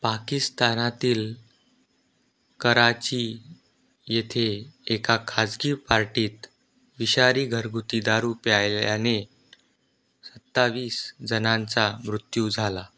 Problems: none marked